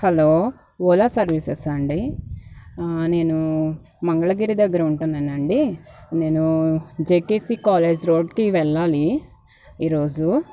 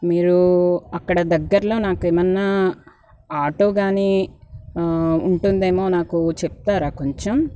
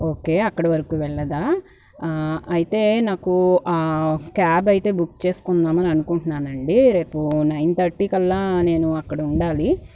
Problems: background sounds at intervals